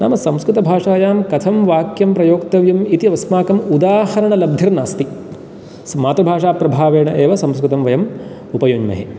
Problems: none marked